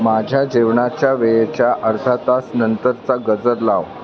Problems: constant background noise, background conversations at intervals